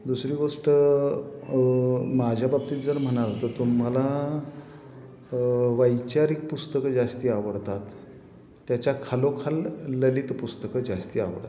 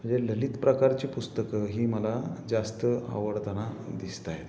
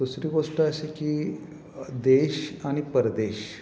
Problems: constant background noise, background conversations at intervals